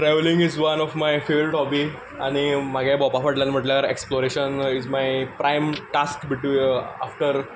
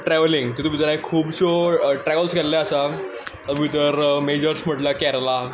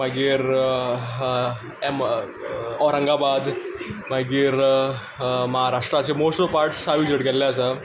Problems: constant background noise